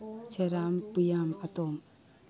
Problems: none marked